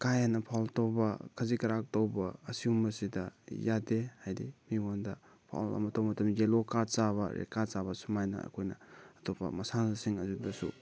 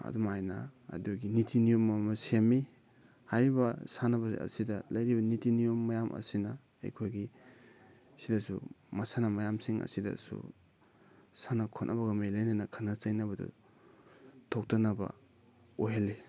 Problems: none marked